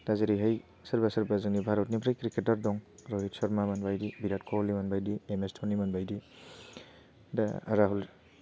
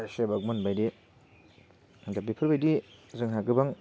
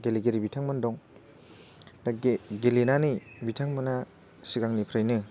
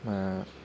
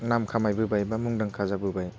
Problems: none marked